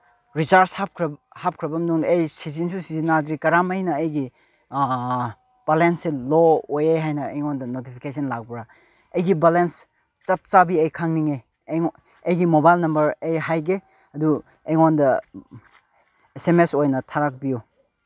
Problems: none marked